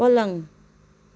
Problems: none marked